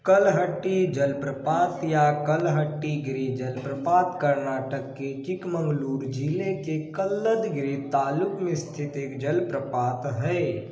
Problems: background sounds at intervals, low volume